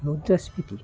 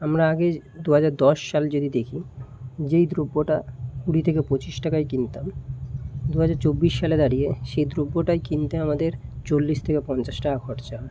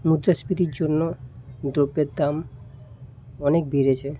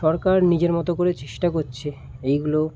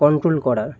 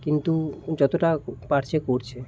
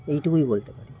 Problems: none marked